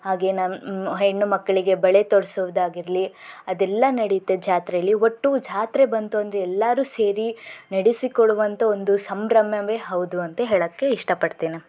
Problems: none marked